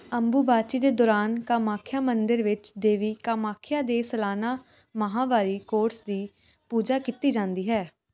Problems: none marked